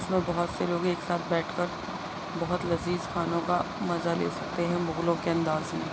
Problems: constant background noise, low volume